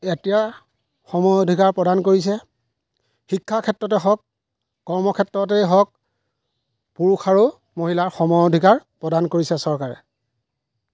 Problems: none marked